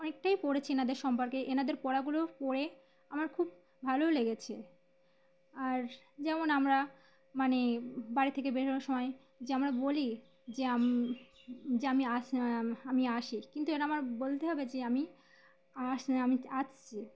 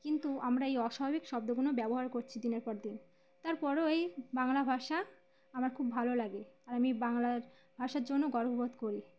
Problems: constant background noise, background conversations at intervals